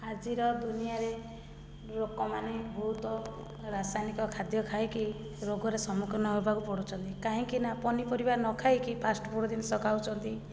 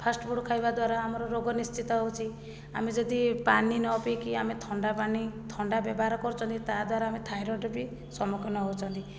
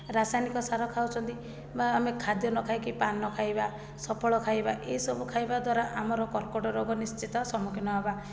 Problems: low volume